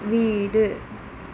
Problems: constant background noise